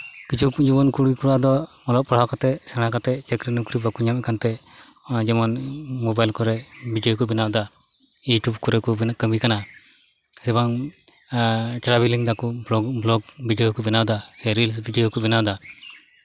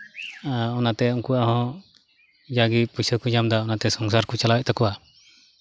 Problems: background sounds at intervals, background conversations at intervals